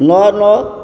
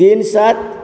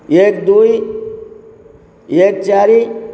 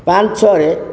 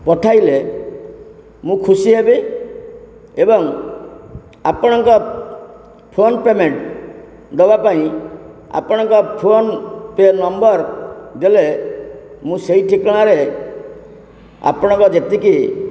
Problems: constant background noise